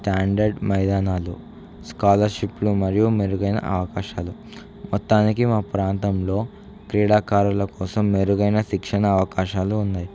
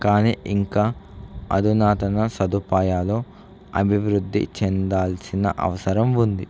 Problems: none marked